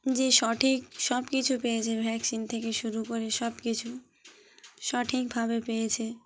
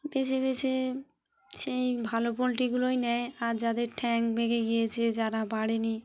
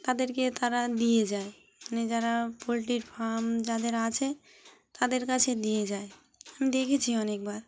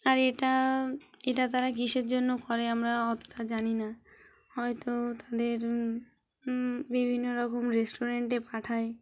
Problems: background sounds at intervals